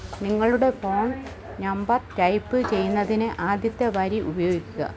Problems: constant background noise